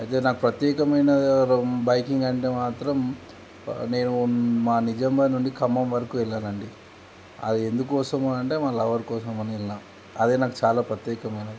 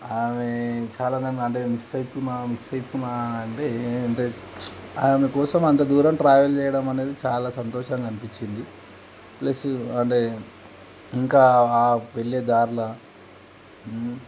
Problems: constant background noise